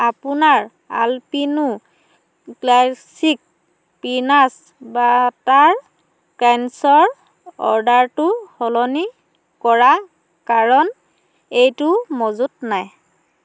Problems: constant background noise